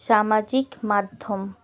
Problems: none marked